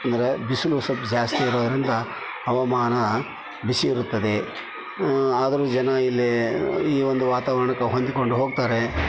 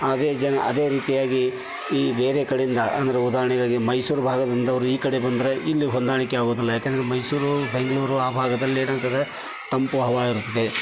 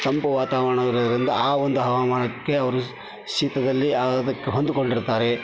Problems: constant background noise